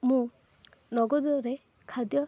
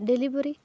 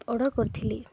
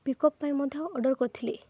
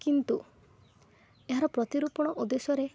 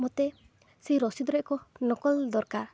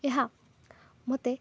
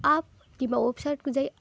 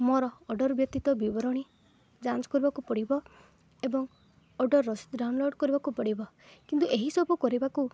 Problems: none marked